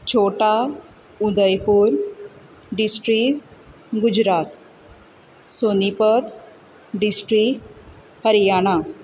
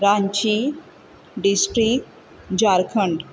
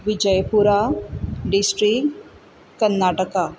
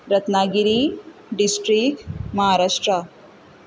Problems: background sounds at intervals